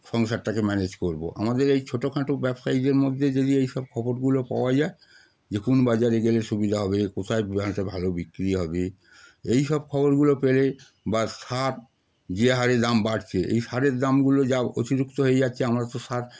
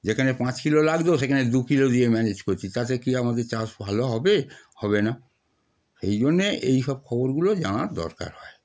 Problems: constant background noise